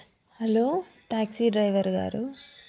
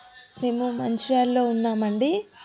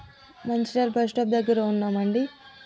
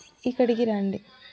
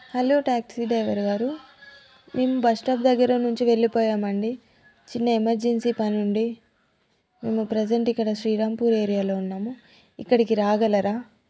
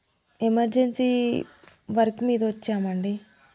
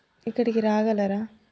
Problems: background conversations at intervals